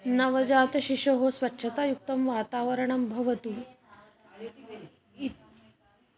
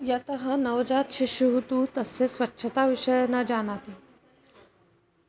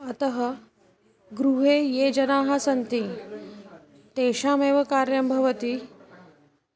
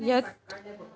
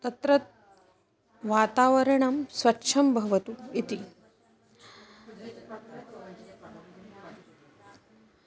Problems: continuous background conversations